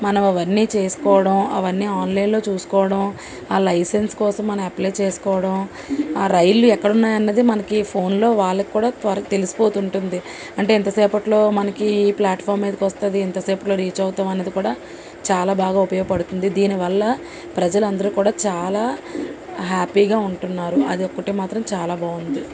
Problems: constant background noise